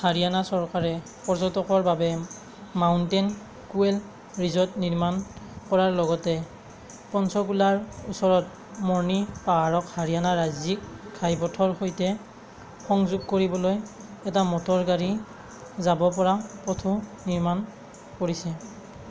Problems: constant background noise